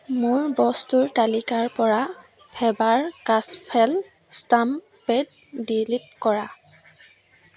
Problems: none marked